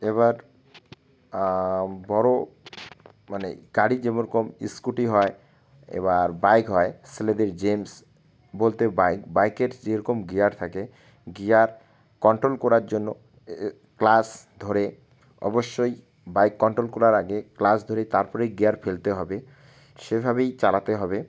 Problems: constant background noise